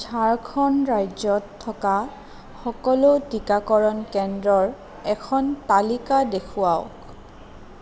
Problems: none marked